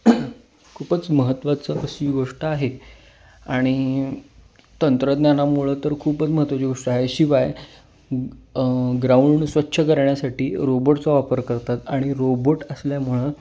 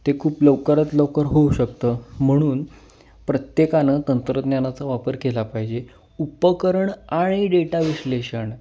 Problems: constant background noise